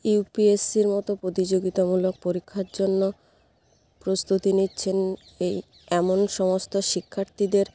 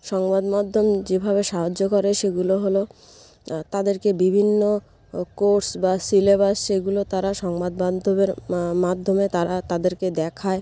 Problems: none marked